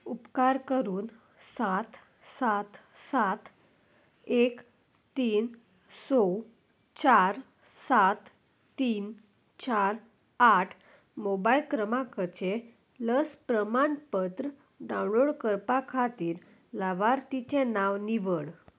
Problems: none marked